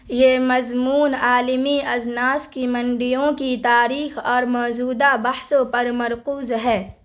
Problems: constant background noise